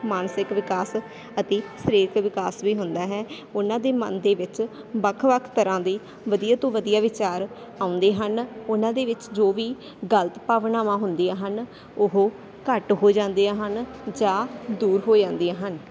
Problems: constant background noise